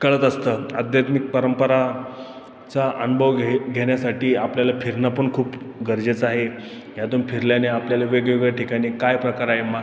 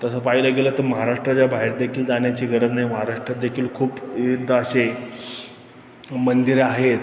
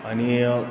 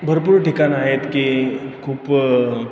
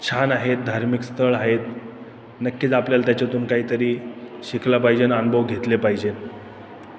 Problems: constant background noise, continuous background conversations